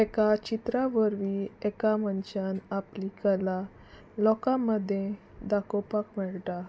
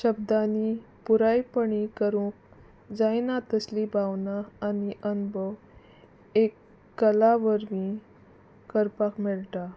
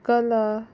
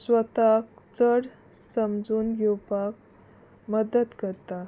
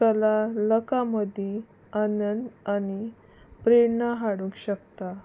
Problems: background sounds at intervals